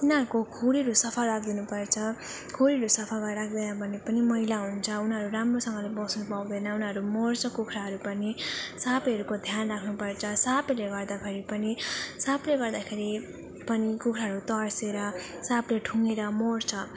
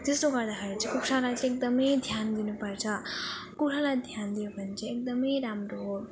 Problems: constant background noise